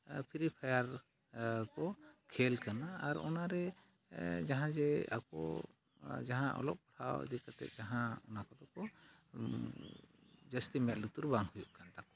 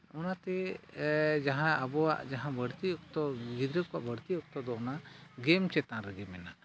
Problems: none marked